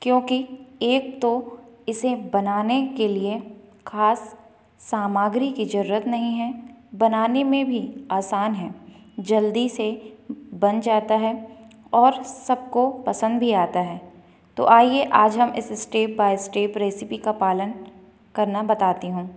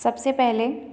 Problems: none marked